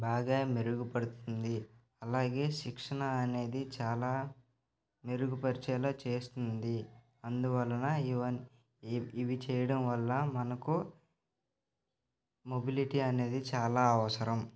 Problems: none marked